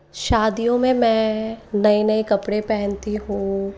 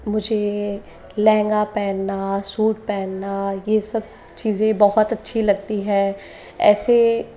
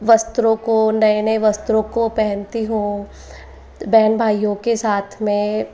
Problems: continuous background conversations